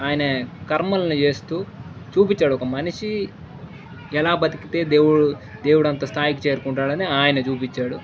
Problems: background sounds at intervals